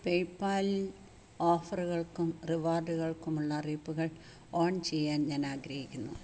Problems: constant background noise